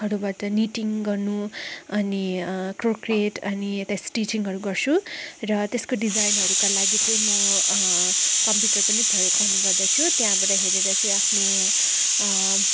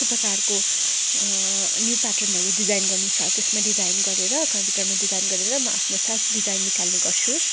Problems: constant background noise